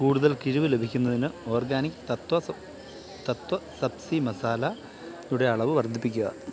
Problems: constant background noise, background conversations at intervals